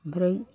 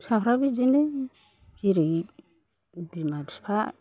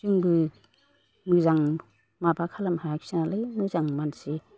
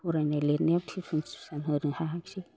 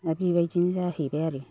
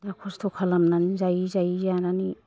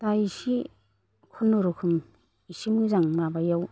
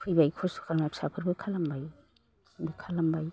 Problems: none marked